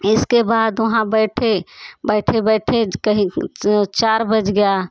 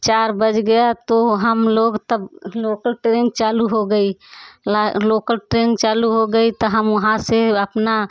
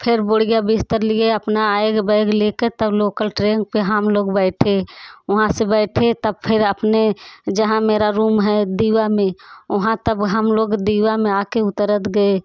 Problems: constant background noise, continuous background conversations